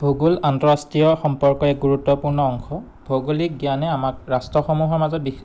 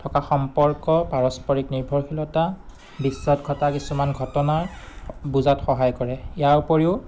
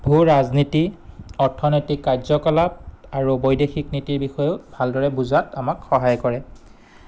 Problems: none marked